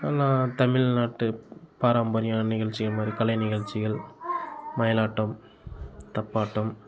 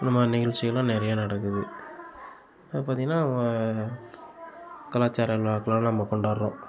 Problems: constant background noise